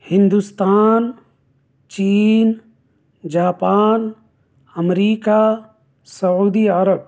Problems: none marked